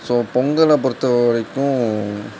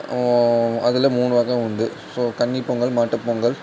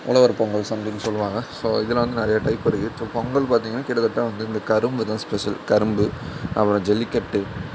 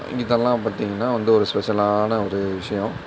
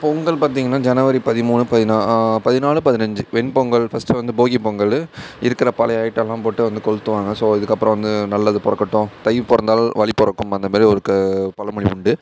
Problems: constant background noise